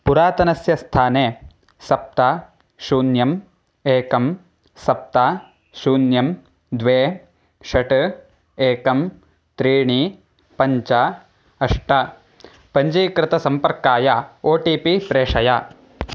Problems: background sounds at intervals